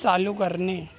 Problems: continuous background conversations